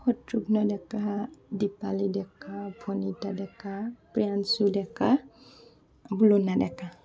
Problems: continuous background conversations